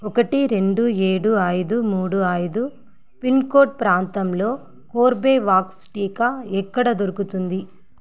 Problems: constant background noise